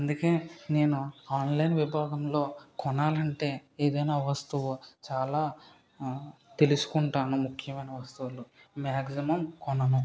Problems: background sounds at intervals